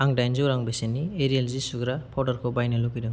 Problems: low volume